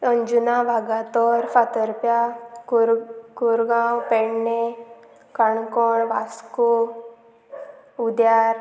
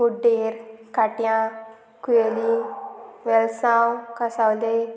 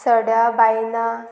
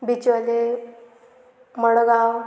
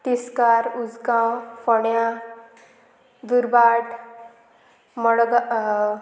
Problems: constant background noise